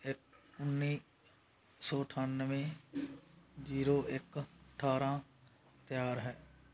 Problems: background sounds at intervals